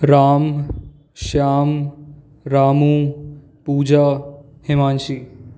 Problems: constant background noise